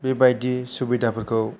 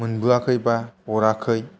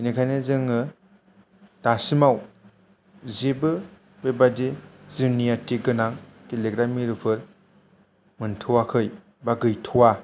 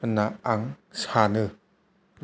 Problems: low volume